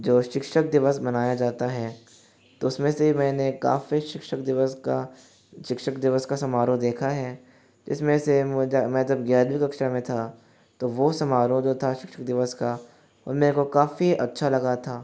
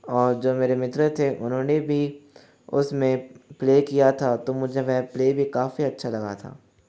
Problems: background sounds at intervals